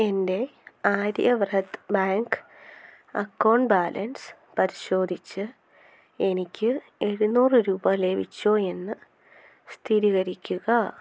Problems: none marked